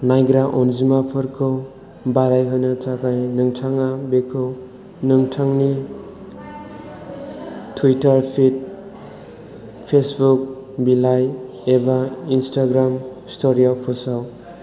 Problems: constant background noise